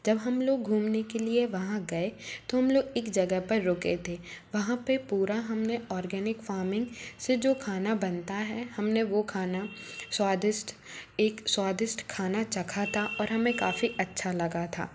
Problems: none marked